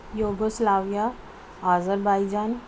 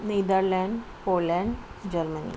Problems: none marked